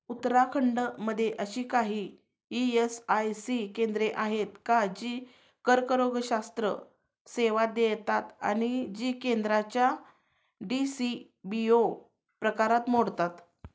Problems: none marked